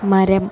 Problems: constant background noise, background conversations at intervals, low volume